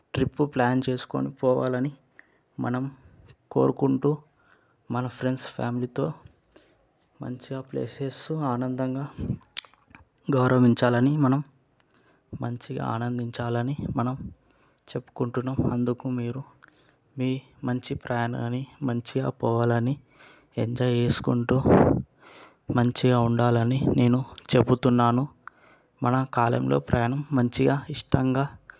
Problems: background sounds at intervals